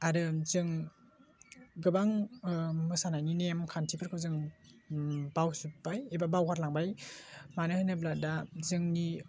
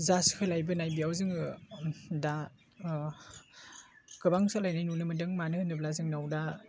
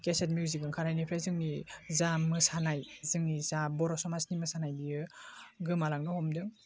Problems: low volume